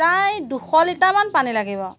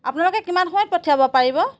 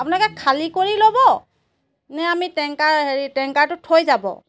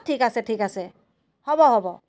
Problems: background sounds at intervals